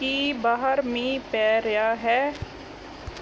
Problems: background sounds at intervals